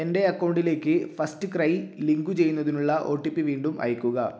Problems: none marked